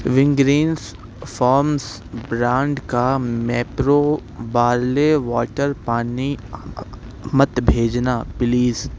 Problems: constant background noise